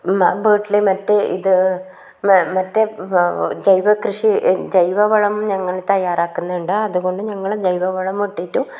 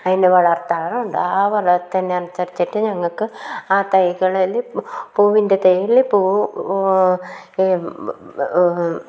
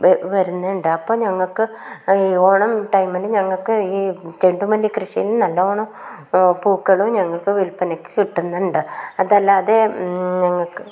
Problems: background sounds at intervals, low volume